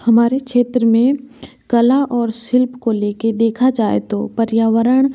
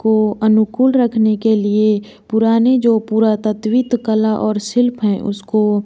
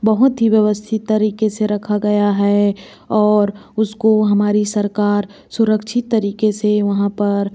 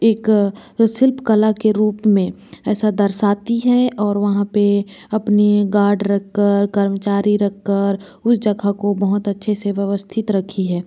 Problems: none marked